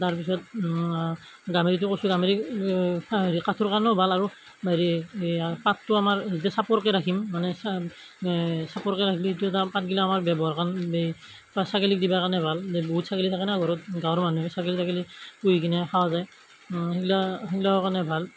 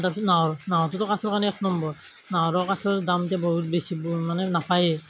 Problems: none marked